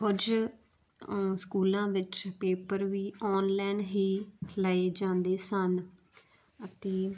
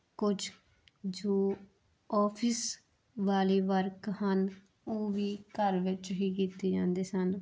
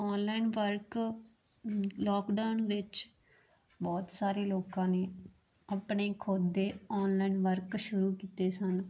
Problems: constant background noise